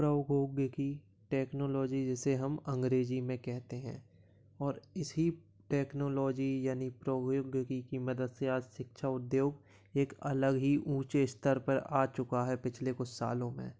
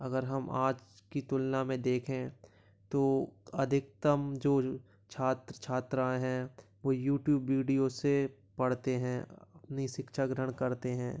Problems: background sounds at intervals